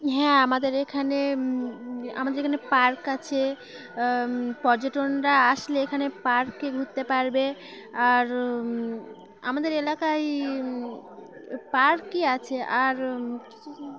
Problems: constant background noise, background conversations at intervals